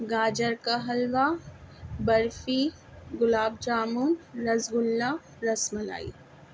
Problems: constant background noise